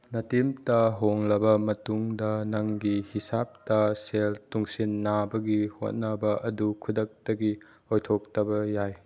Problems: background sounds at intervals